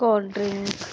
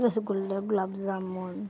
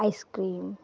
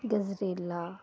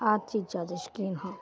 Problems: background sounds at intervals